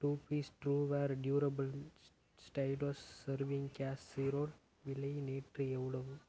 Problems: none marked